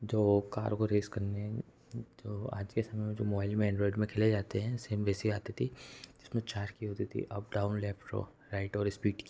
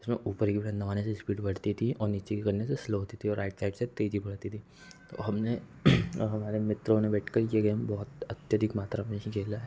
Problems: low volume